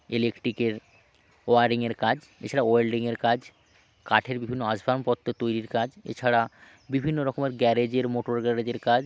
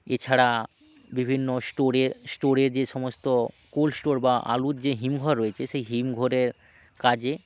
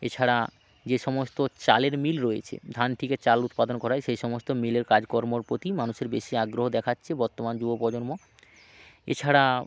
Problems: none marked